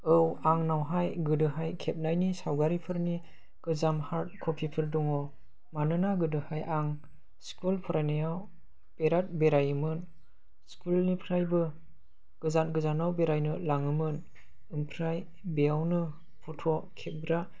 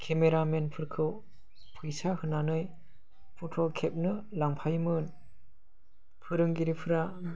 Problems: low volume